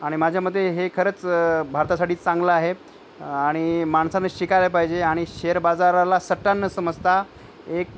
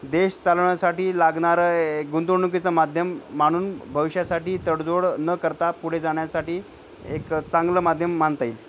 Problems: none marked